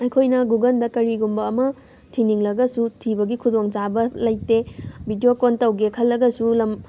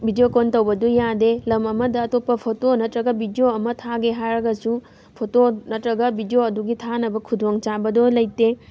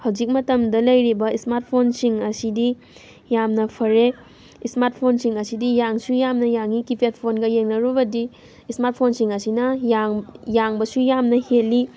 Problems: none marked